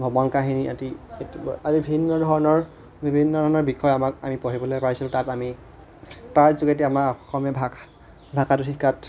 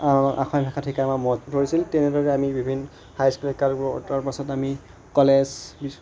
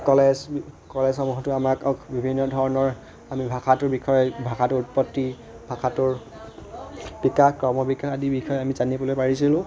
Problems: continuous background conversations